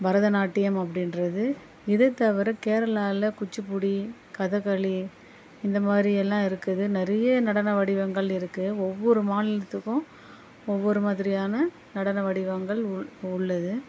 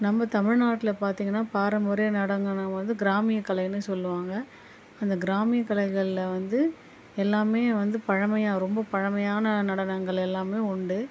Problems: none marked